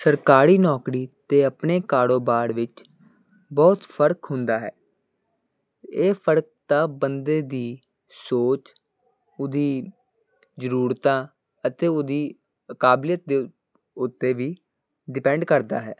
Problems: constant background noise